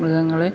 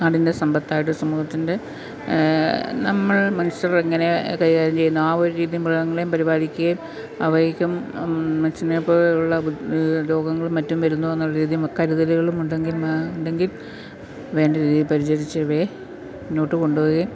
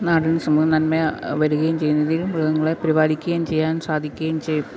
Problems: constant background noise